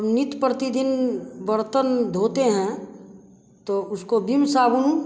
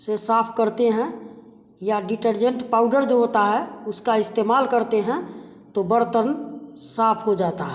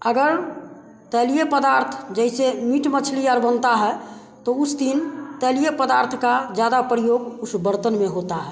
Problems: none marked